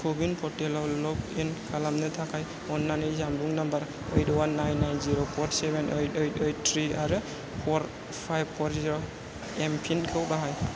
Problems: none marked